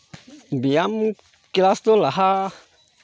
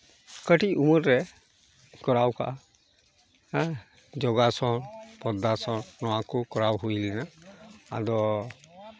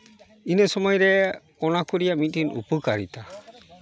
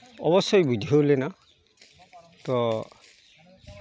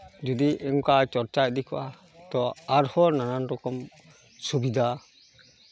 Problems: background conversations at intervals